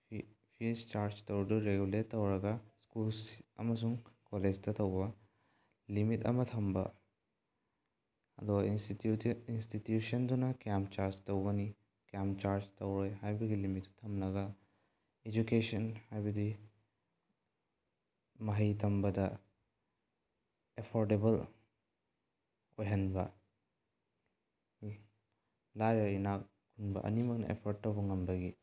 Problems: low volume